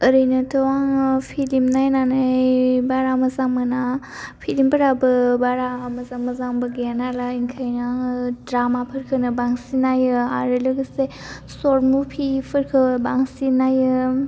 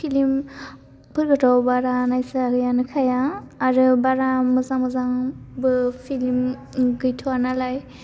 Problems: constant background noise